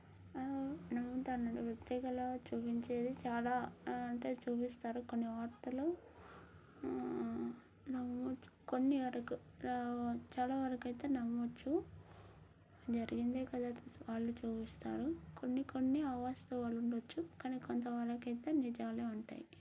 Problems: none marked